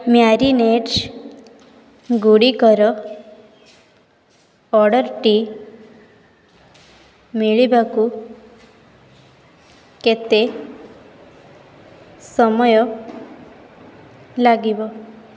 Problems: background sounds at intervals, background conversations at intervals